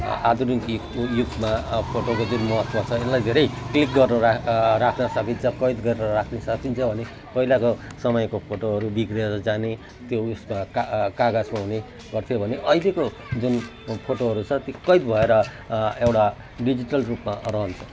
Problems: none marked